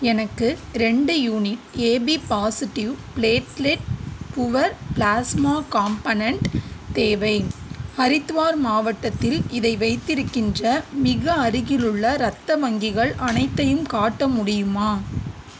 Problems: constant background noise